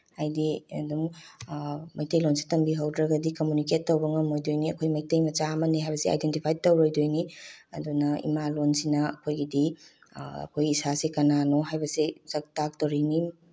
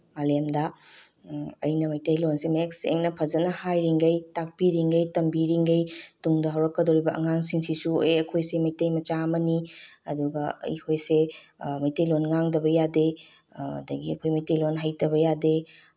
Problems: background sounds at intervals